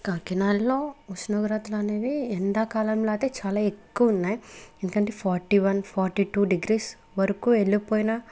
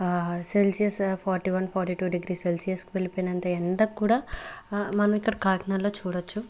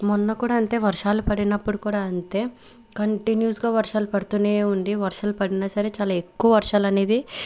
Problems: background conversations at intervals